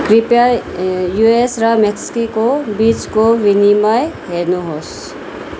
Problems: none marked